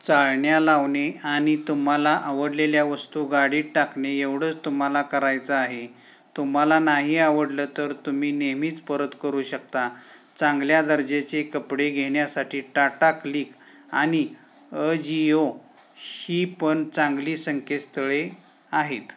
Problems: none marked